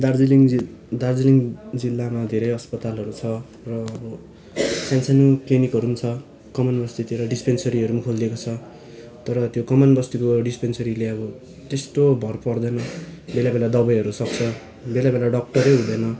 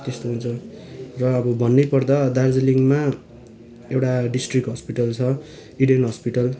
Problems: constant background noise, continuous background conversations